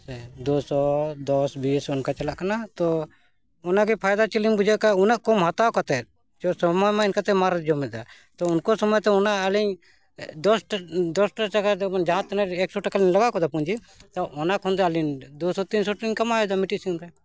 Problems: none marked